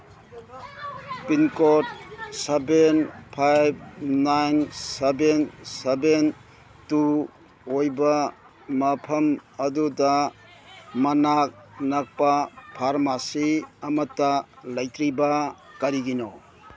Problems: background sounds at intervals